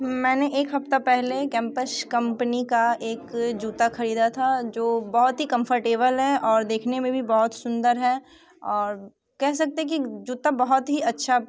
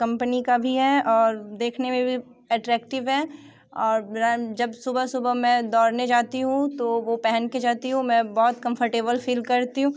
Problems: background sounds at intervals